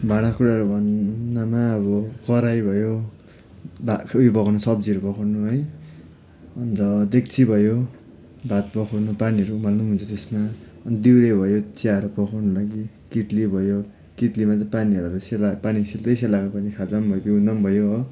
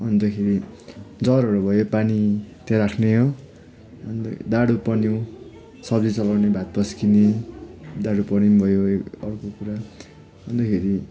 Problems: none marked